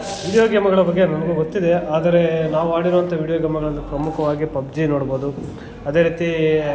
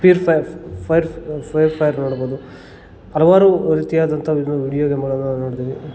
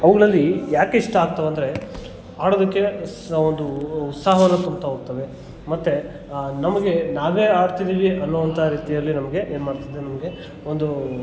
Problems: background sounds at intervals, background conversations at intervals